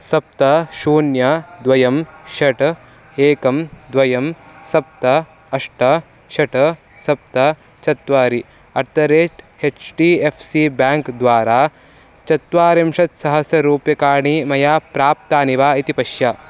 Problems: constant background noise